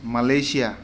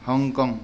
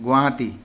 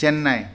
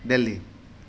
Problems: constant background noise